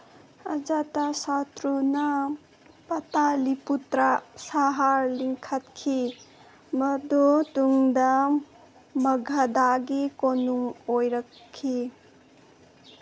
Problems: none marked